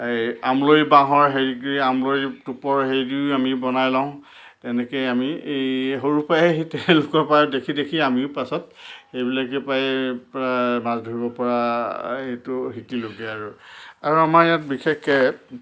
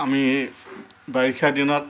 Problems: constant background noise